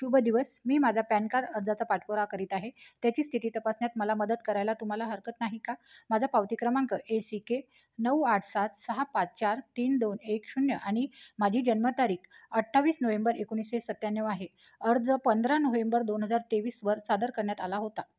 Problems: none marked